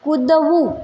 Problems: none marked